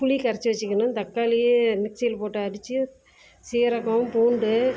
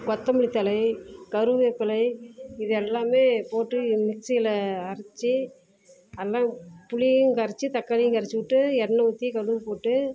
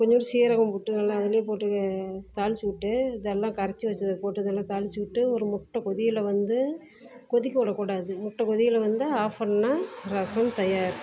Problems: background sounds at intervals